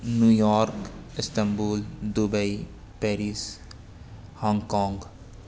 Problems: constant background noise